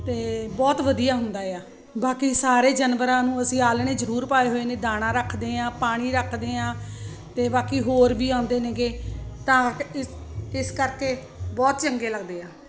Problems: constant background noise